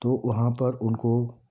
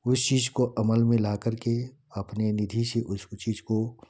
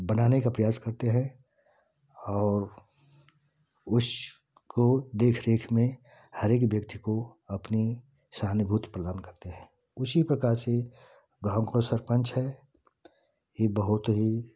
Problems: none marked